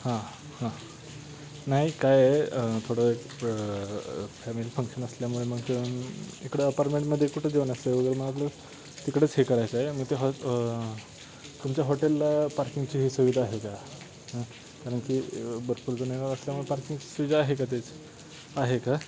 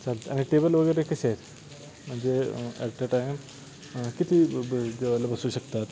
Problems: constant background noise